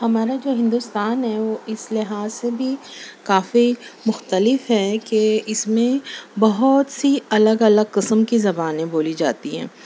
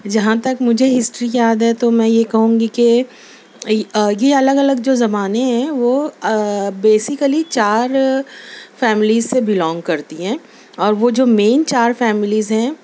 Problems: none marked